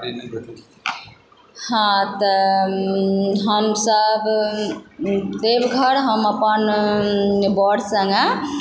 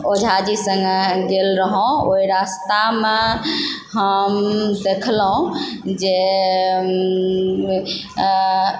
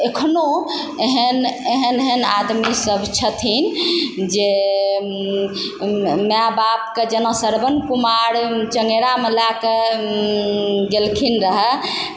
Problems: constant background noise